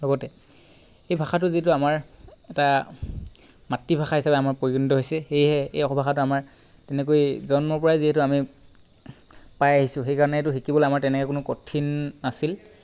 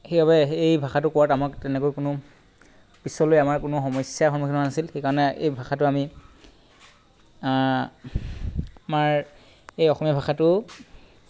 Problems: background sounds at intervals